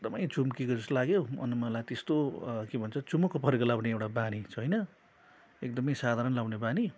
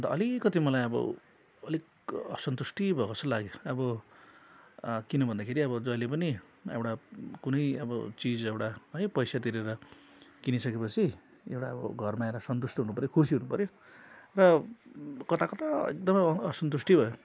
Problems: constant background noise